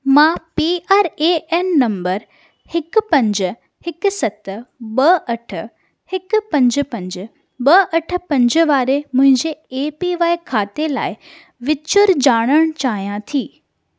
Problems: none marked